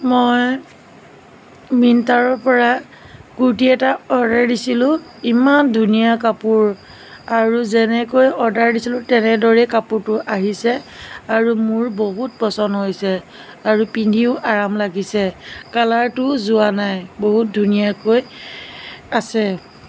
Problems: constant background noise